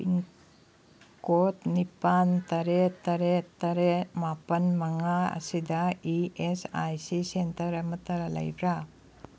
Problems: background sounds at intervals